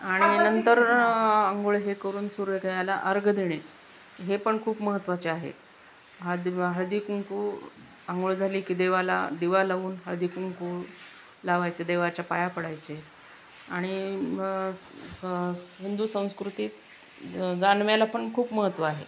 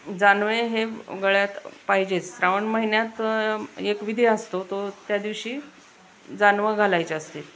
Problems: constant background noise